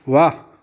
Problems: constant background noise